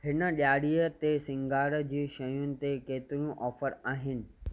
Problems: none marked